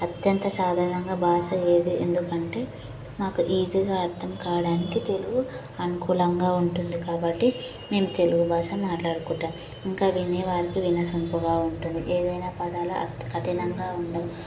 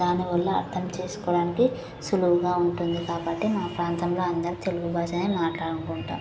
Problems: none marked